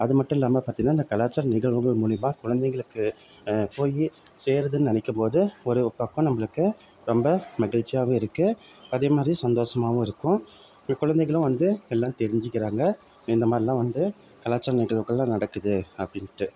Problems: none marked